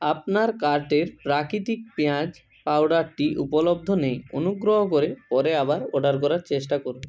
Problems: constant background noise